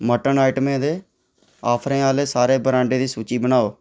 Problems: none marked